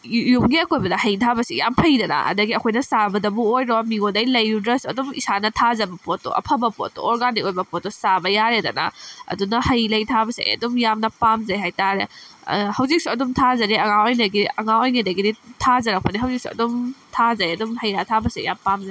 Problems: background sounds at intervals